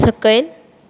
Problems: constant background noise